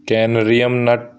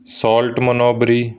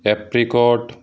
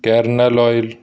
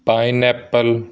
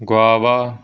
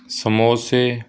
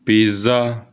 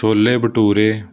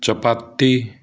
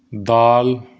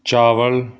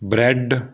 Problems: background sounds at intervals